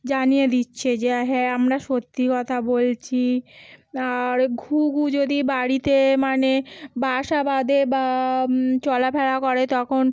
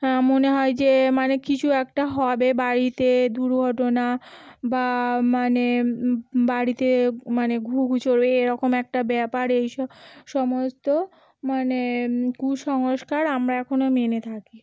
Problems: continuous background conversations